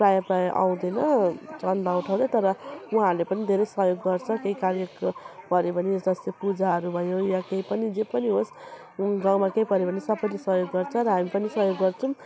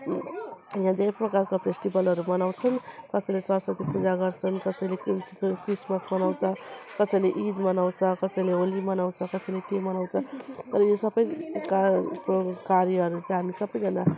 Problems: constant background noise, continuous background conversations